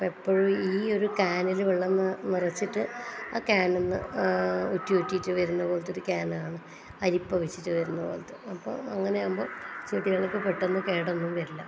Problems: low volume